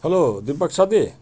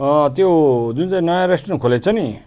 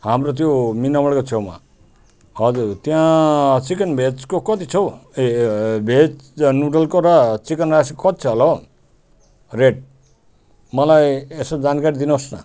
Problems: none marked